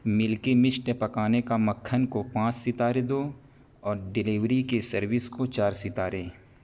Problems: constant background noise